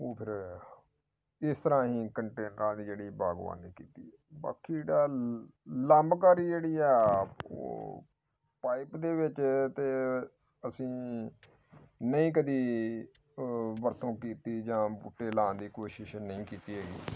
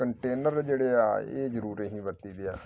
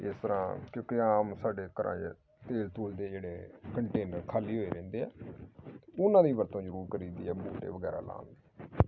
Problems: background sounds at intervals